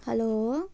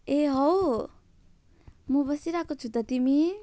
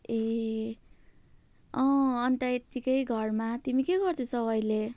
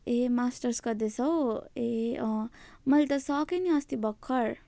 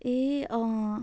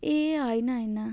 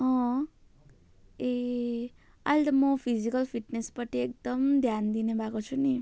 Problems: none marked